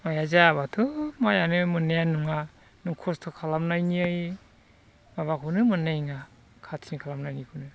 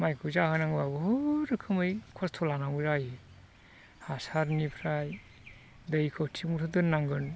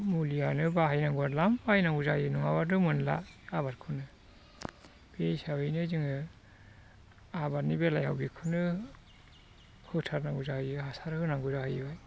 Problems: constant background noise